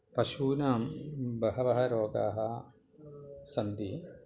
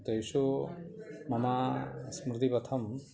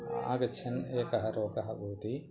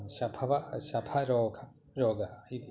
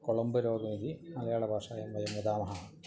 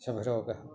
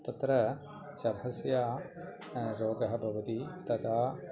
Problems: continuous background conversations